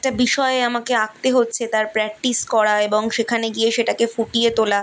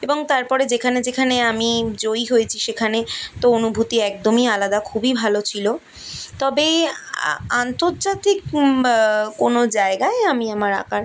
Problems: none marked